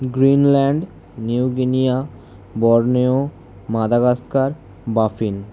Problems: constant background noise